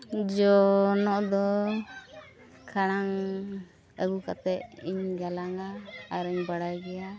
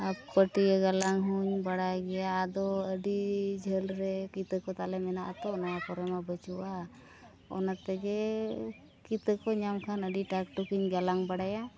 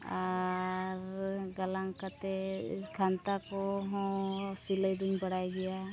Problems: continuous background conversations, low volume